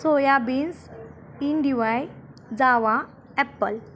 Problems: none marked